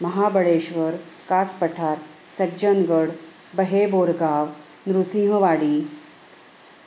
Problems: constant background noise